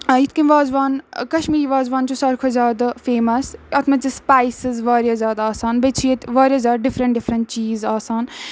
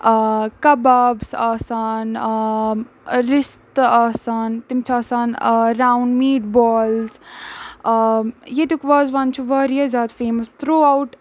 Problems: none marked